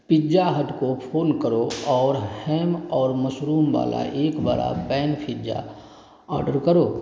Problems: constant background noise